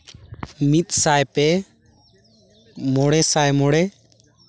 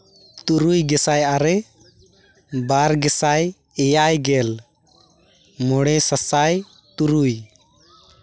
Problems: none marked